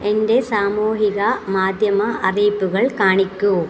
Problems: constant background noise